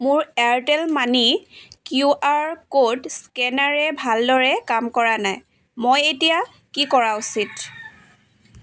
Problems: background sounds at intervals